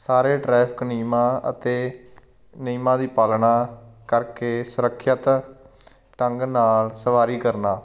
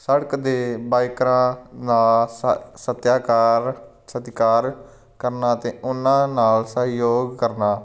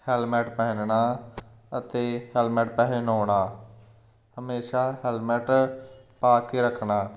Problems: none marked